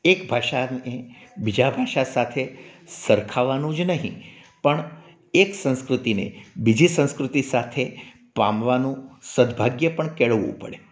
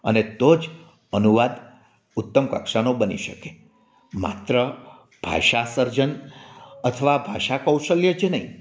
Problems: none marked